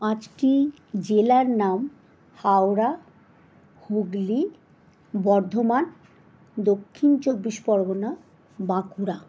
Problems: none marked